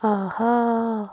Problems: constant background noise, background conversations at intervals